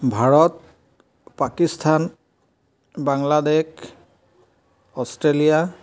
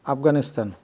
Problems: none marked